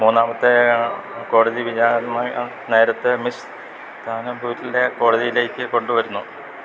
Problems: constant background noise